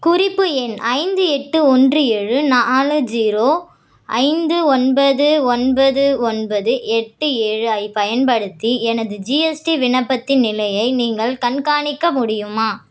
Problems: none marked